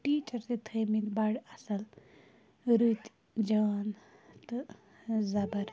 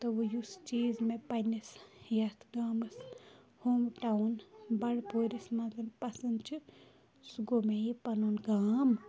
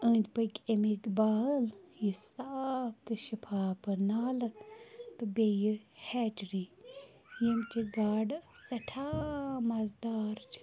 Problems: background conversations at intervals, low volume